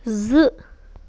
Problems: constant background noise